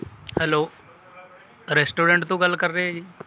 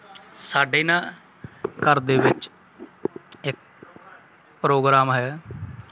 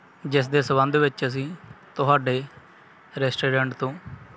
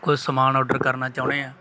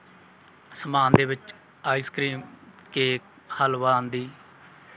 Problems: background sounds at intervals